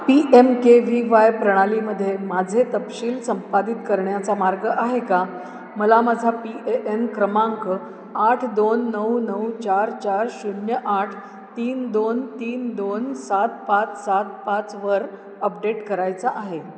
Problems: none marked